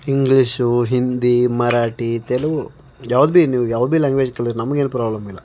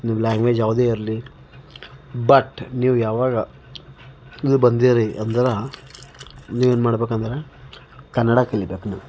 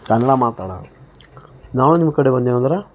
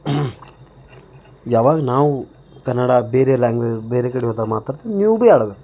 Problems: background sounds at intervals